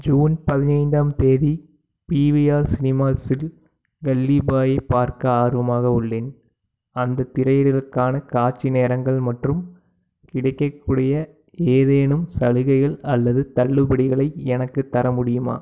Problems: background sounds at intervals